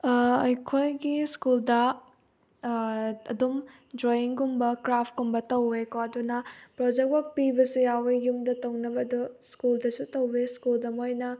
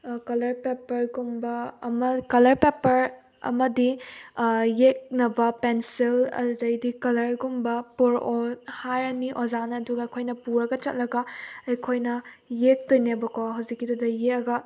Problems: none marked